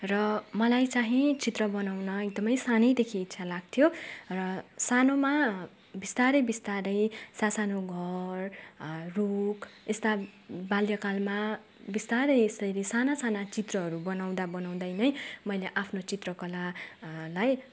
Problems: none marked